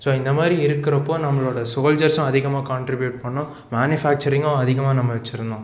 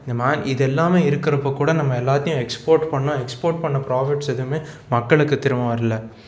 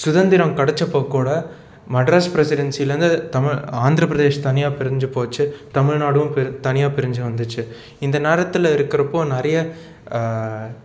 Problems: background sounds at intervals